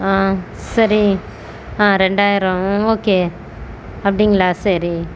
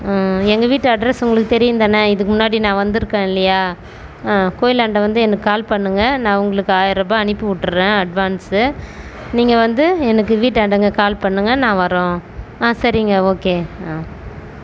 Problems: constant background noise